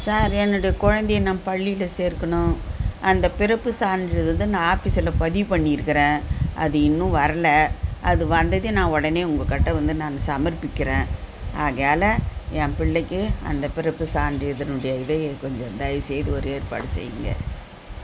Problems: background sounds at intervals